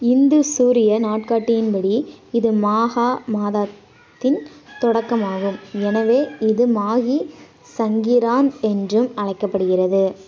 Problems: constant background noise